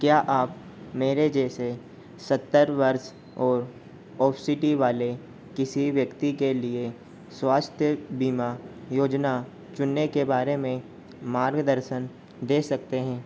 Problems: constant background noise